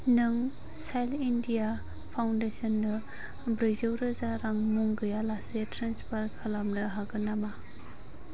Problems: constant background noise